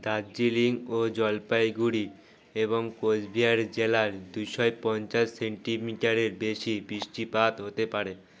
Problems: none marked